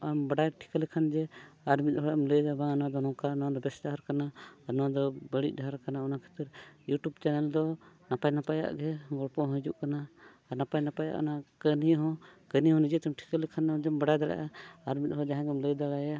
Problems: none marked